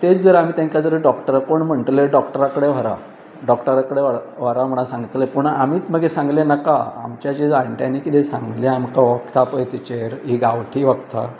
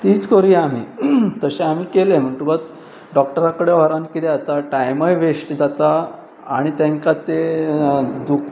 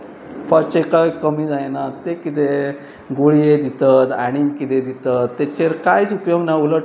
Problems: constant background noise